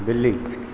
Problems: none marked